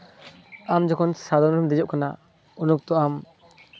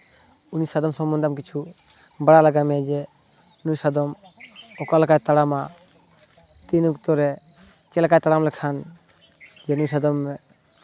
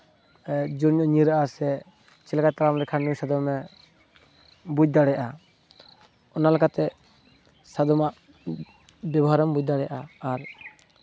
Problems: none marked